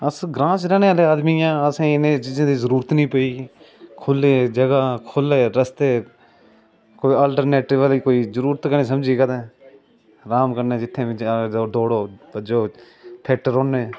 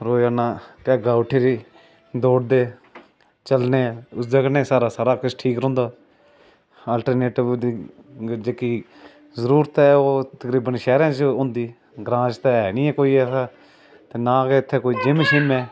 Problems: constant background noise